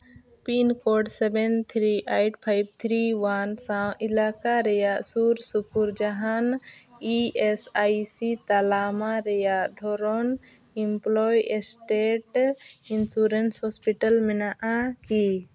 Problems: constant background noise